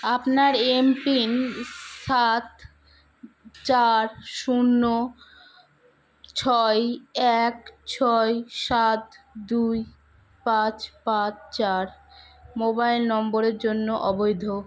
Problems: background sounds at intervals